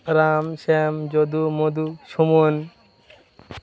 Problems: constant background noise